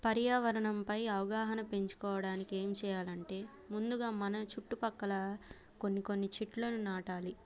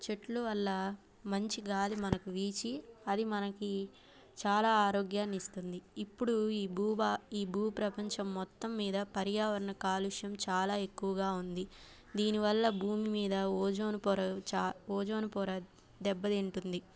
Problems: background sounds at intervals